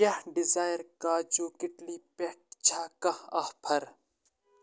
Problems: constant background noise